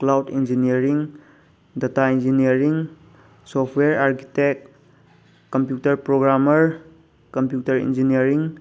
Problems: none marked